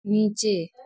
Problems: none marked